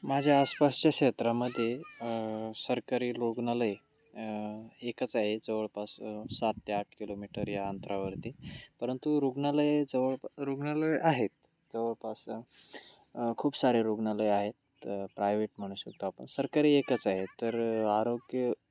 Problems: constant background noise, continuous background conversations, low volume